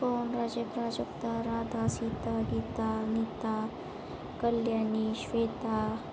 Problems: none marked